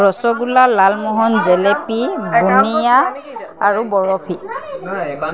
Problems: none marked